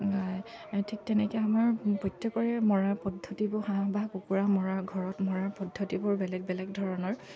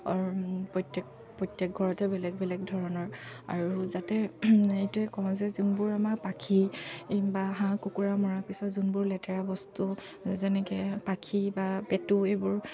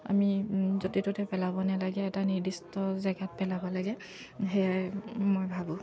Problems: none marked